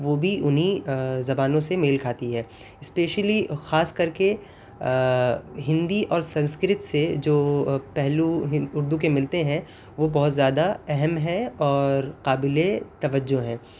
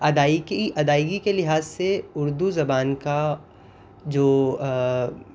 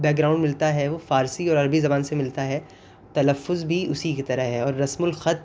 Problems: constant background noise